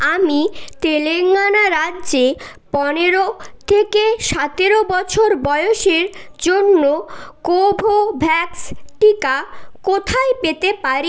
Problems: constant background noise, background conversations at intervals